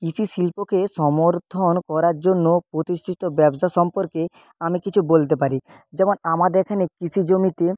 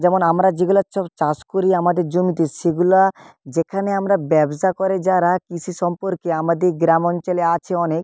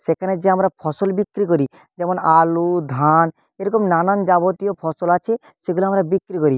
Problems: none marked